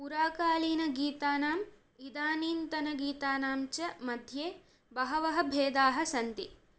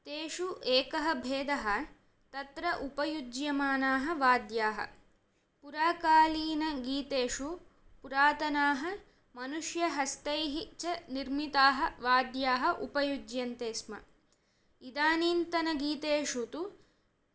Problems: none marked